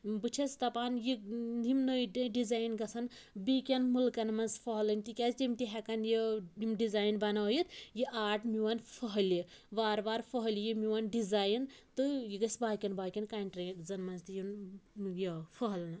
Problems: background sounds at intervals